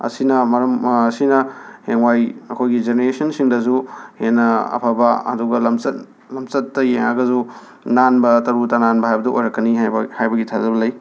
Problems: background sounds at intervals, background conversations at intervals